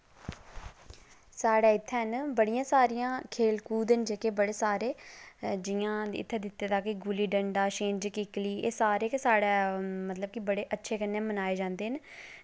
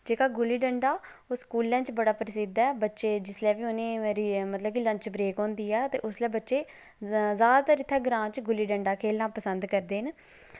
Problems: none marked